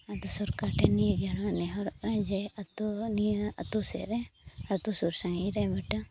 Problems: background sounds at intervals